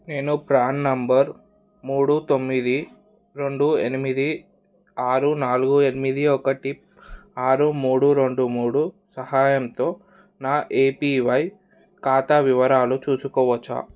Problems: none marked